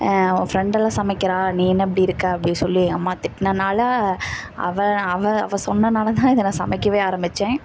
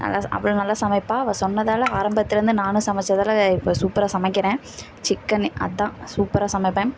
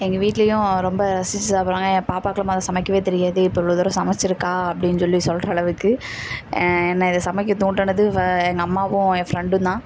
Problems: none marked